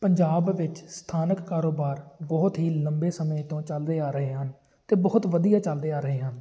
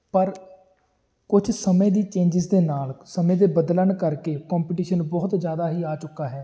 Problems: background sounds at intervals, continuous background conversations